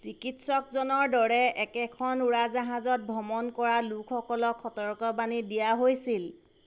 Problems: constant background noise